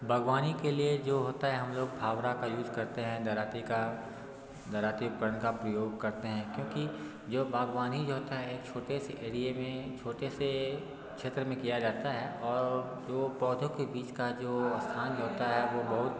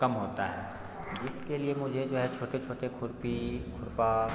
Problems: none marked